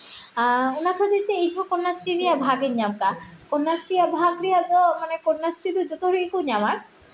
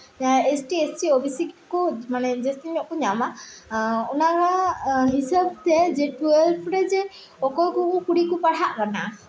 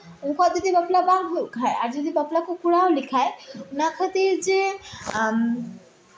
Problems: background sounds at intervals, continuous background conversations, echo